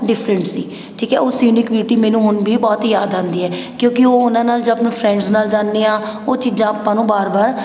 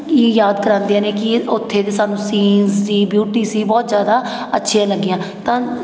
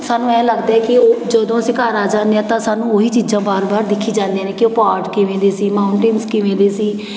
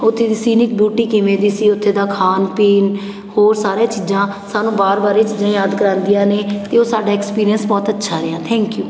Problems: none marked